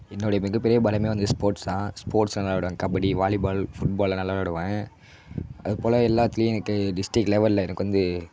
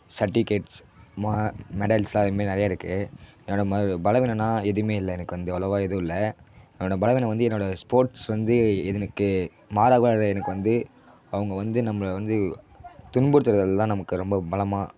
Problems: background sounds at intervals